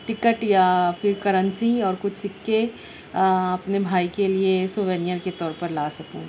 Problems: none marked